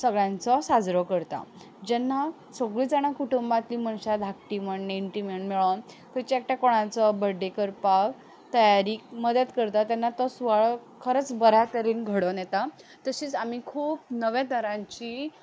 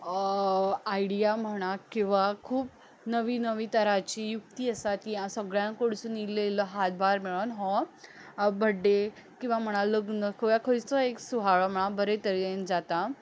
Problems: background sounds at intervals